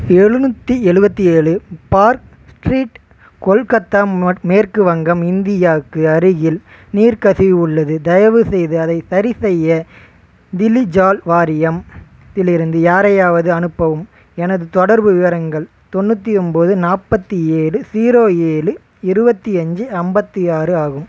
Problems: constant background noise